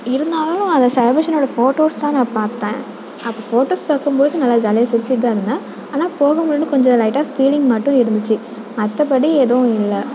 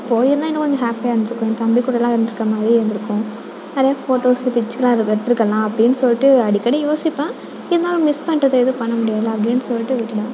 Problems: background sounds at intervals